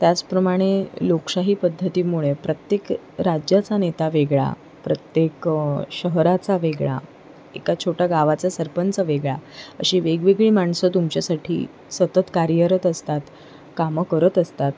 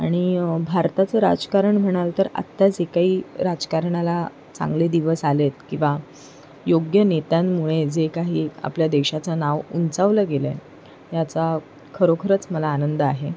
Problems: none marked